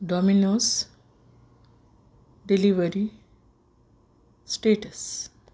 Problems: none marked